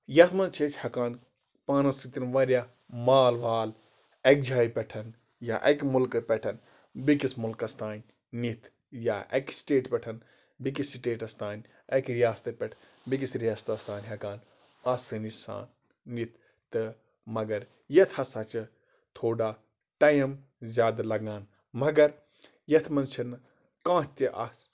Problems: constant background noise